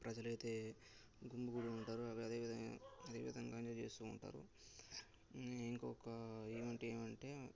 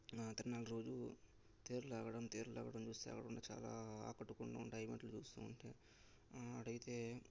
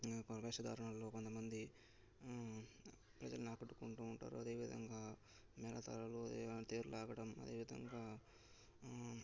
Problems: background sounds at intervals, low volume